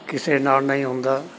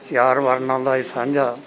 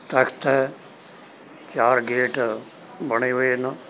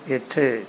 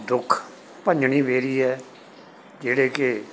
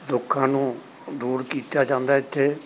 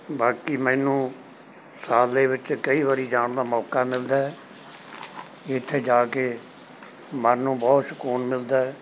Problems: none marked